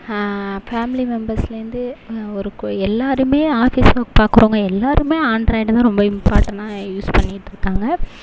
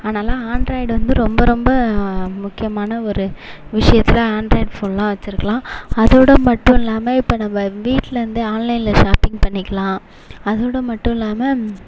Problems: constant background noise